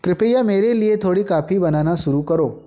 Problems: background sounds at intervals